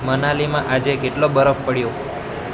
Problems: constant background noise